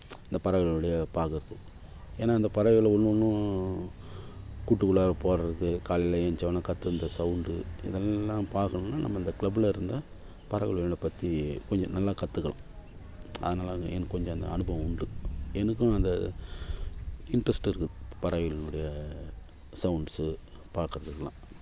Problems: background sounds at intervals